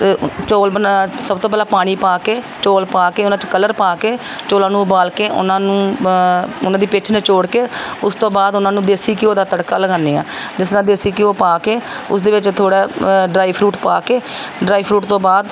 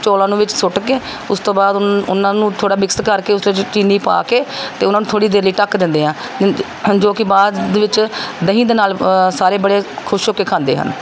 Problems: none marked